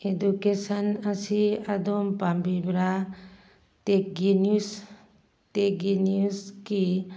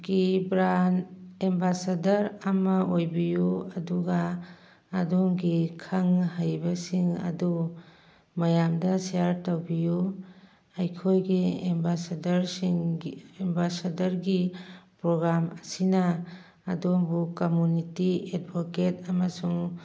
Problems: background conversations at intervals